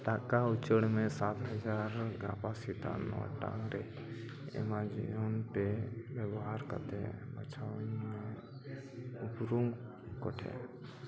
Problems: none marked